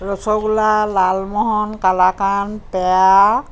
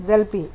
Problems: constant background noise